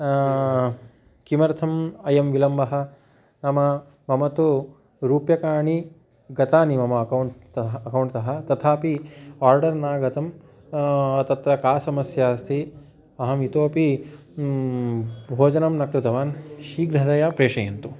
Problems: continuous background conversations